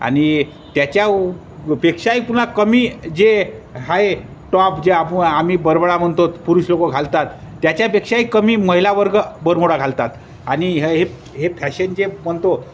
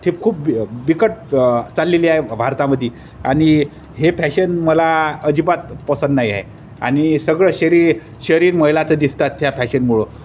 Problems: constant background noise, background conversations at intervals